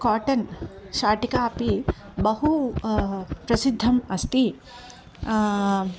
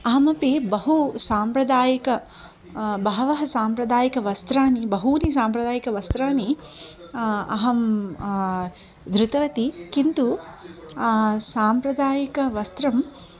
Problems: background sounds at intervals